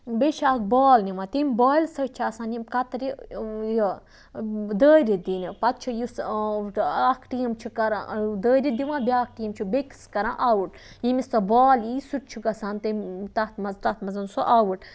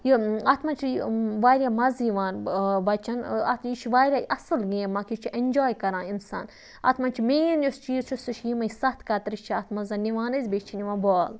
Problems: none marked